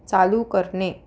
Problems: none marked